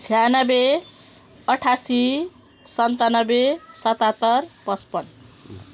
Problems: none marked